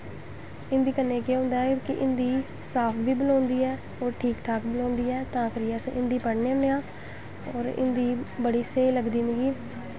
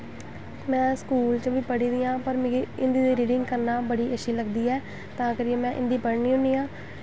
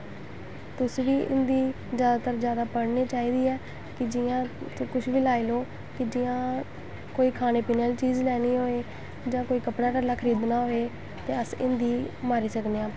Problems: constant background noise